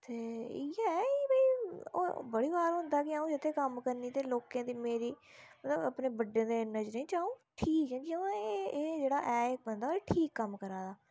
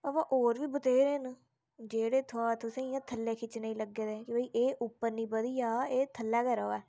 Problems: none marked